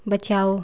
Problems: constant background noise